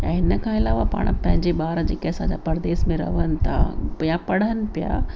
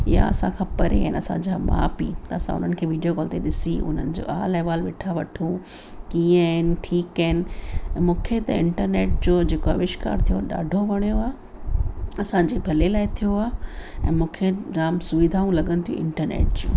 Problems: constant background noise, echo